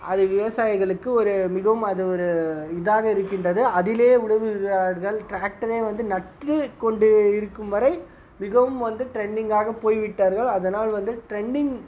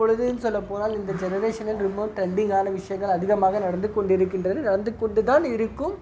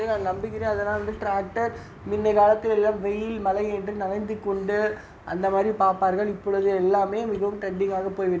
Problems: none marked